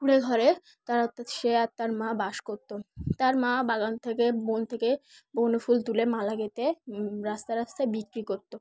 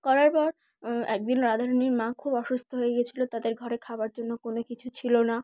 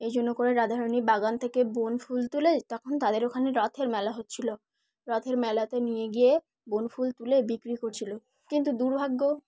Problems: background sounds at intervals